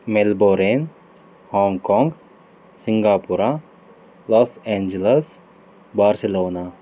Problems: none marked